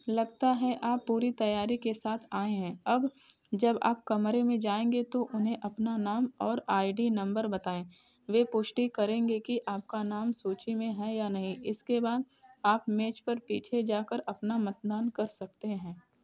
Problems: none marked